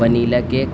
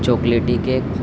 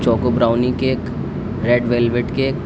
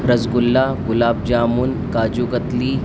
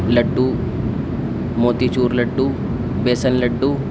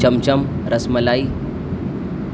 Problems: constant background noise